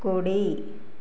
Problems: constant background noise